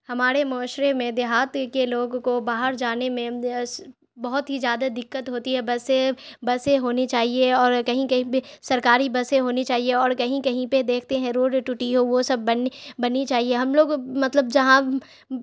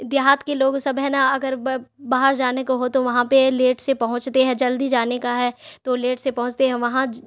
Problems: none marked